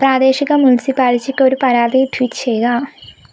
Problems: none marked